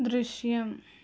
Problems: low volume